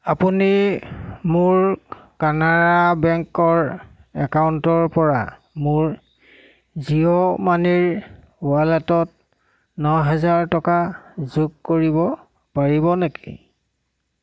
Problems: constant background noise